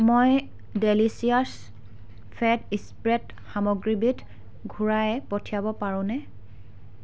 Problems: none marked